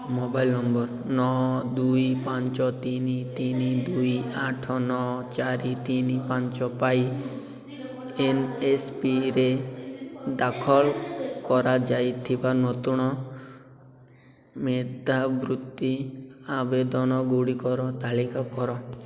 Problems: constant background noise, continuous background conversations